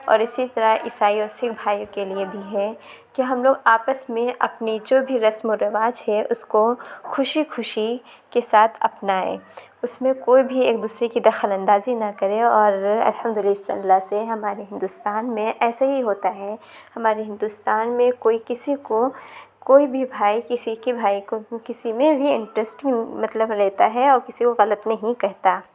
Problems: background sounds at intervals, background conversations at intervals